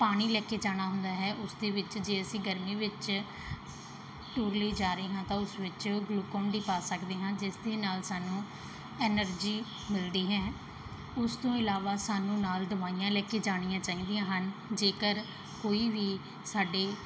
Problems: background sounds at intervals, background conversations at intervals